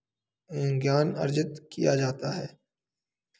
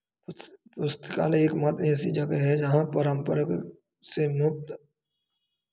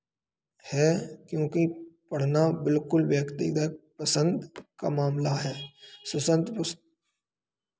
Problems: constant background noise, background conversations at intervals